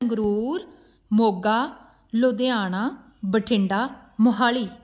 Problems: background sounds at intervals